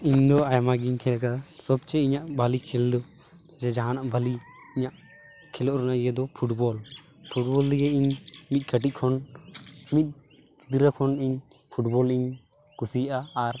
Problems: constant background noise, continuous background conversations